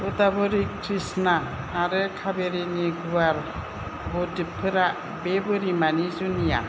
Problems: low volume